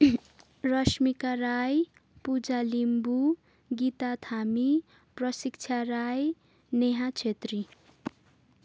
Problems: none marked